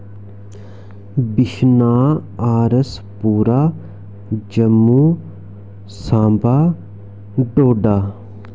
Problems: constant background noise